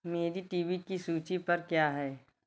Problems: none marked